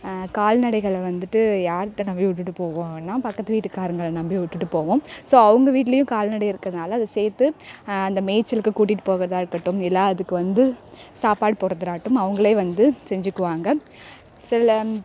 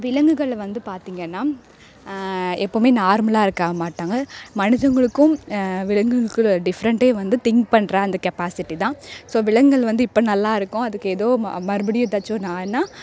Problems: none marked